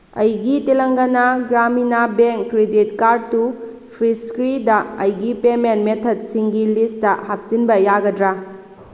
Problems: constant background noise